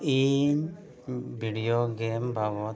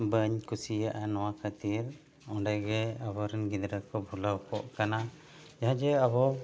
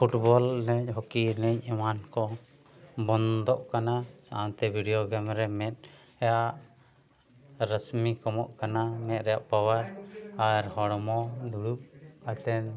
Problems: background sounds at intervals, background conversations at intervals